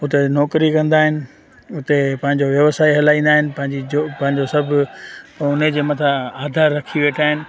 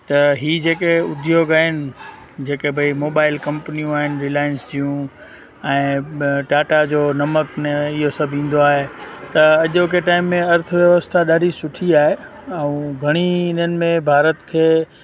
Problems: constant background noise